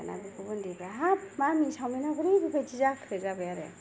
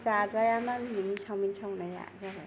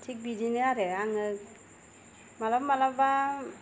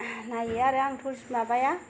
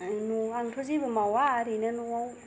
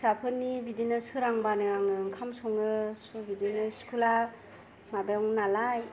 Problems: none marked